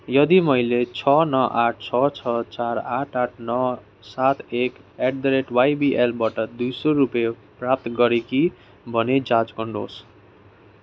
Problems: constant background noise